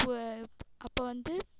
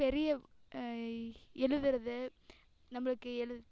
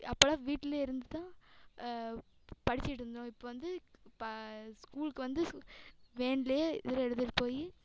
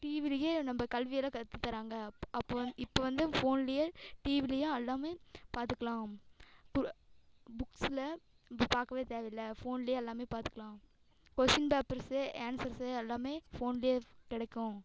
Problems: background sounds at intervals, echo